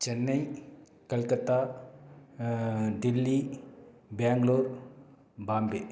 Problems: none marked